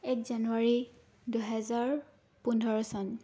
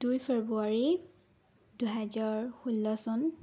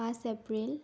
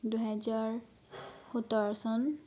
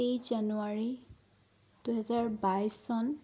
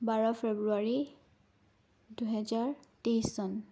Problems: background sounds at intervals